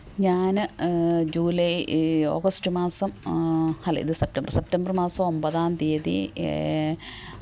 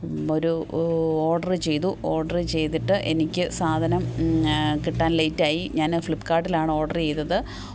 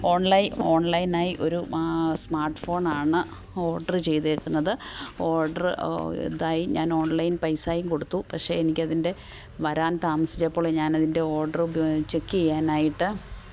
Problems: background sounds at intervals